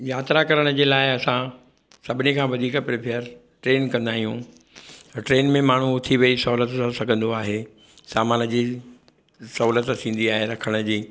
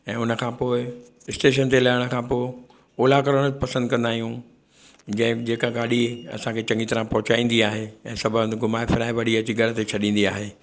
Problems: none marked